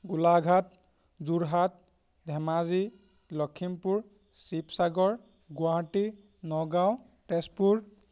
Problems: background sounds at intervals